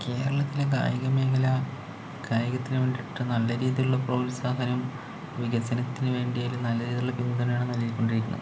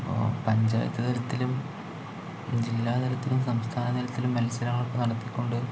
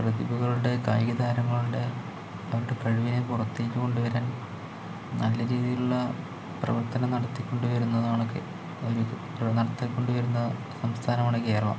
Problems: low volume